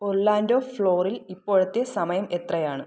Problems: none marked